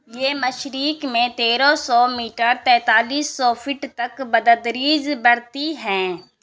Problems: constant background noise